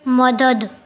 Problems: none marked